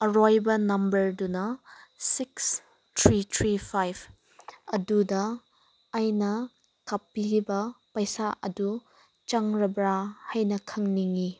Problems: none marked